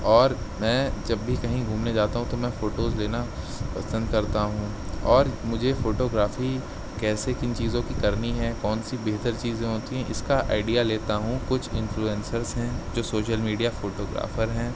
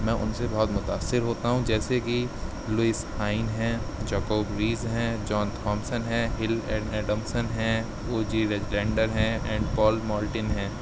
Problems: none marked